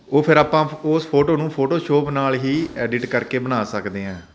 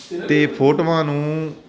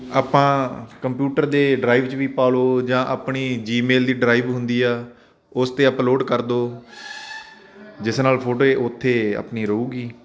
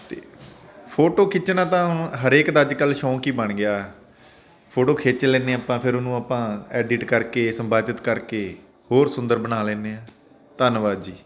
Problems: none marked